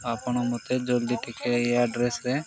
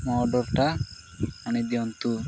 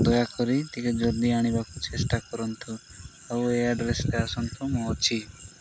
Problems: constant background noise, background conversations at intervals